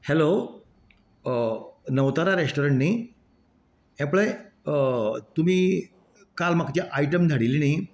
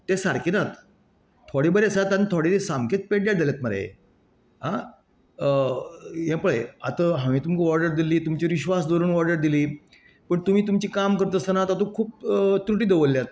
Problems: none marked